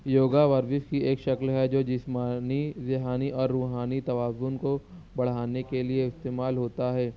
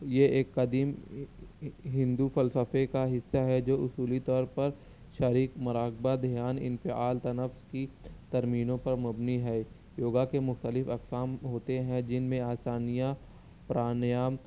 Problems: background sounds at intervals, low volume